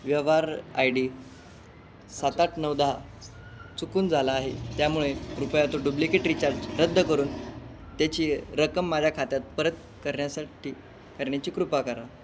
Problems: none marked